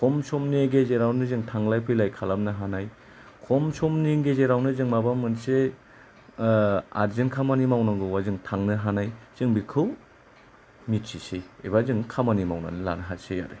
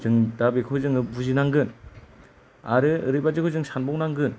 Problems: none marked